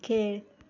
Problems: none marked